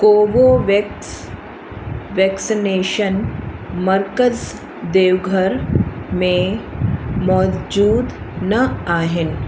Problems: constant background noise, echo